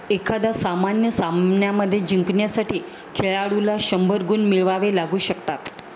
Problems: constant background noise